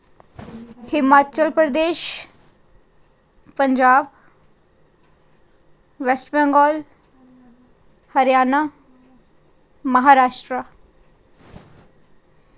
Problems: none marked